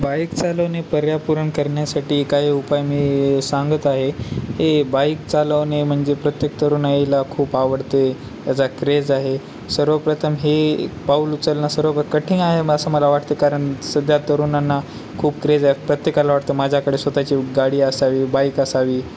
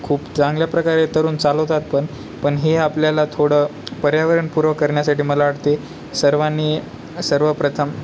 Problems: none marked